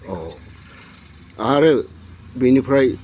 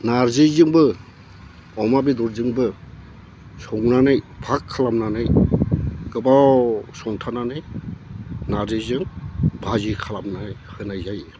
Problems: low volume